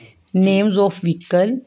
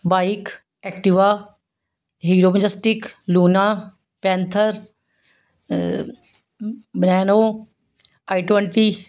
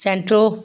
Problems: background sounds at intervals